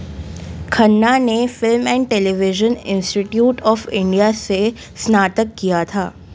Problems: none marked